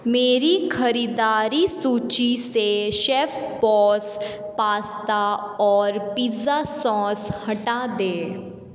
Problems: background sounds at intervals, echo